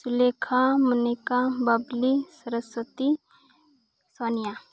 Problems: none marked